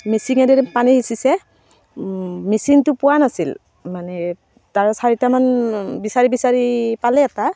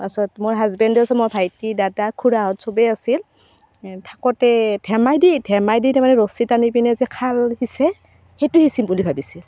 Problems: constant background noise